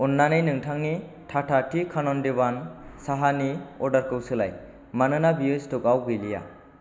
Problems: none marked